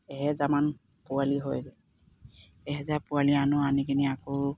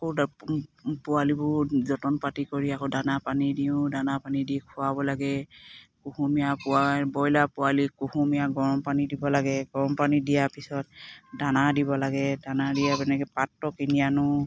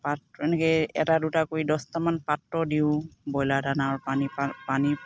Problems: none marked